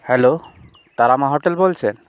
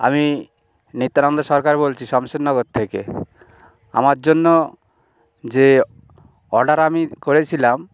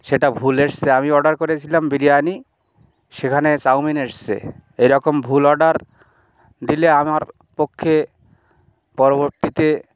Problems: background sounds at intervals